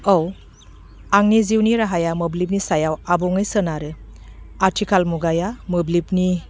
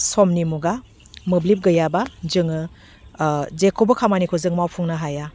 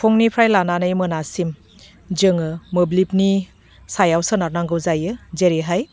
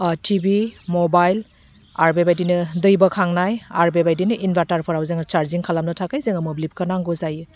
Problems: none marked